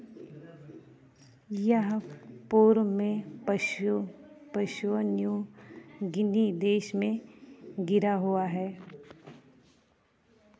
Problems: none marked